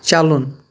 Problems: none marked